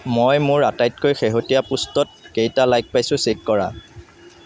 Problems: none marked